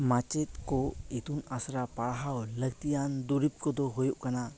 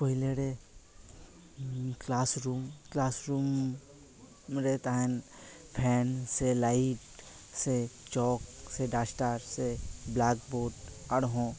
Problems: none marked